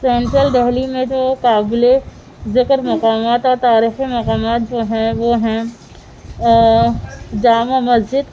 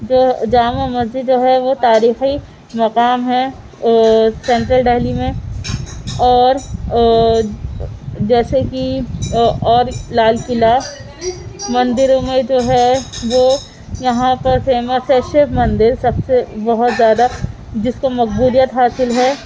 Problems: constant background noise